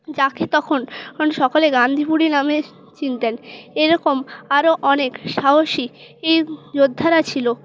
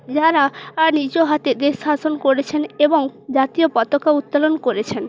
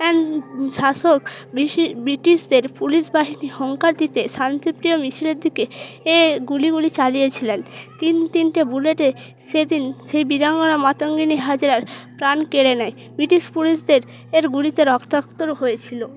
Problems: constant background noise